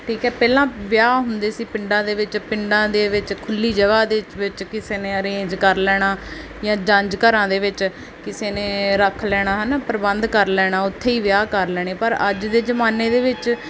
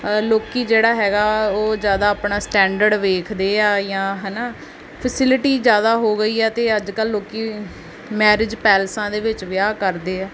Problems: background sounds at intervals